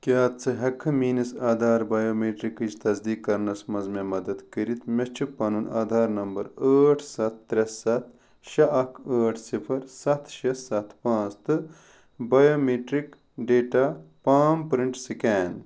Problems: none marked